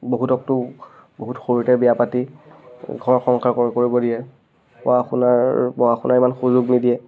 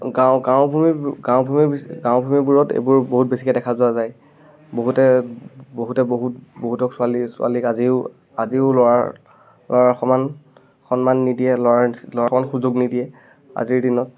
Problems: constant background noise